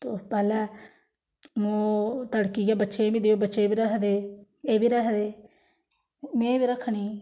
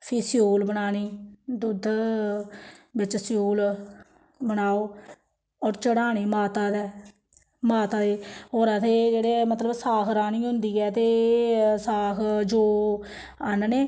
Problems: none marked